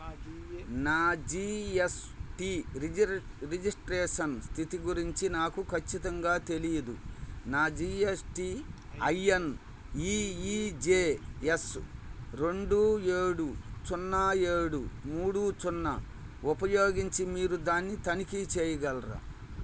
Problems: constant background noise